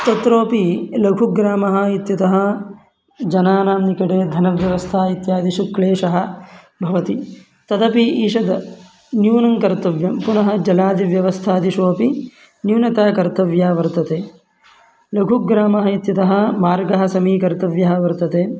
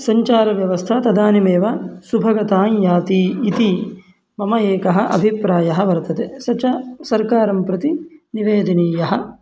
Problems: background sounds at intervals